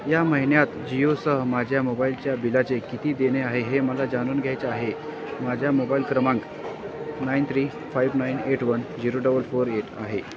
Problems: constant background noise, continuous background conversations